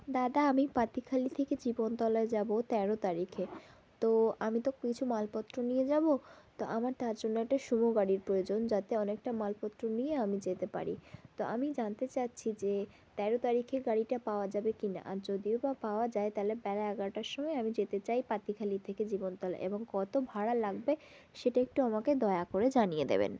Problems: constant background noise